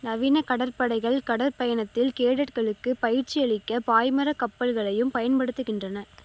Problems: constant background noise